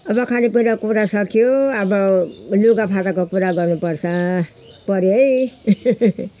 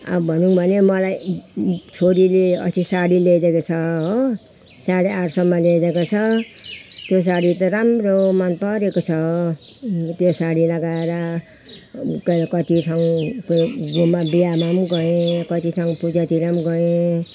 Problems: none marked